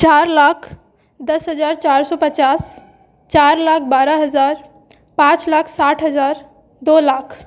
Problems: background sounds at intervals, background conversations at intervals